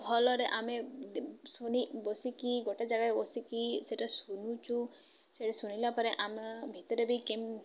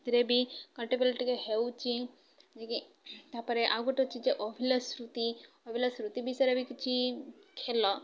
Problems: none marked